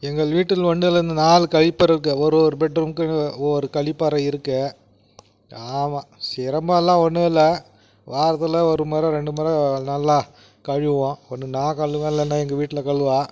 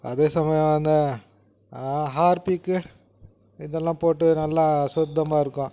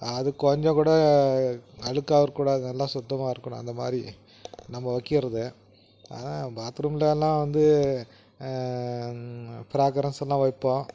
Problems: none marked